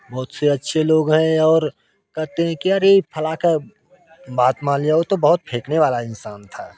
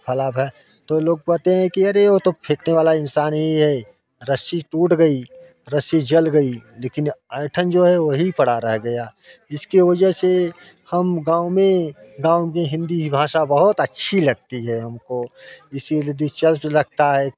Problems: constant background noise